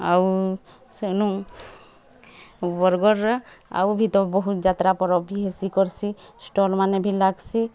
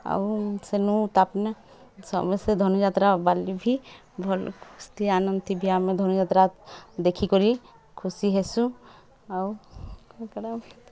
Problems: background sounds at intervals, background conversations at intervals